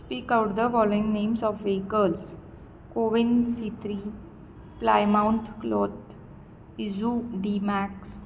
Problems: constant background noise